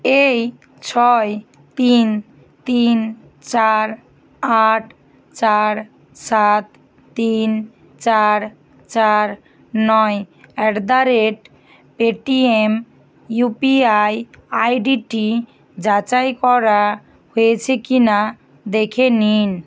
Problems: constant background noise